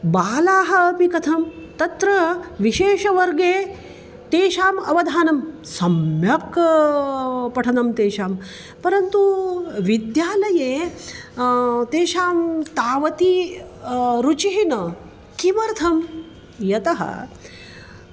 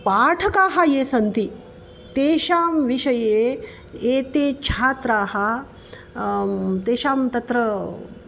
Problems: constant background noise